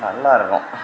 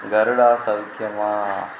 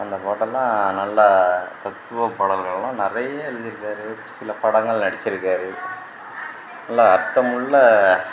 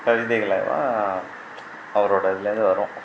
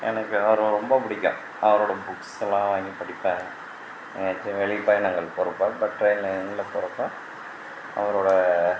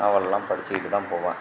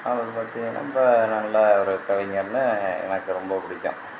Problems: constant background noise